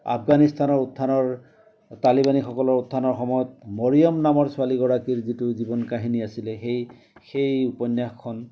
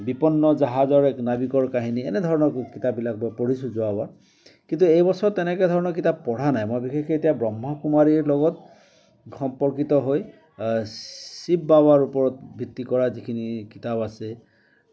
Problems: none marked